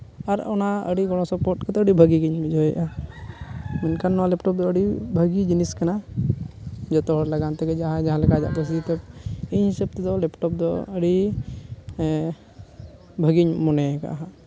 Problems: none marked